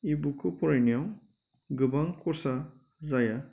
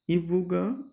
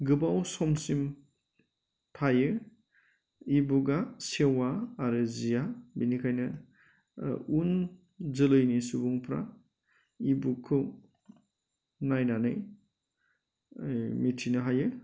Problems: constant background noise